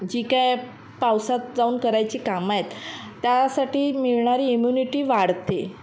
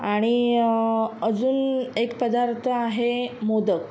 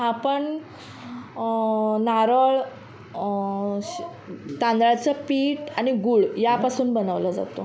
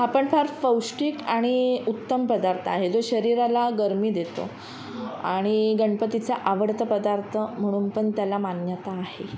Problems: none marked